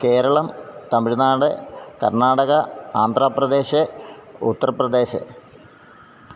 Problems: none marked